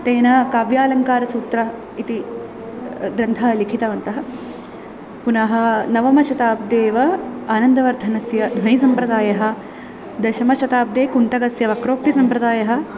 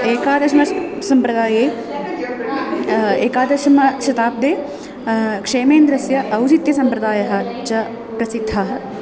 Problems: constant background noise, continuous background conversations